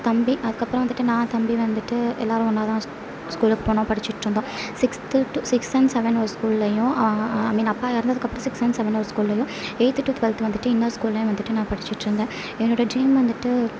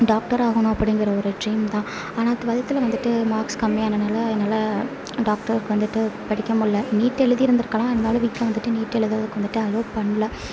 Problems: low volume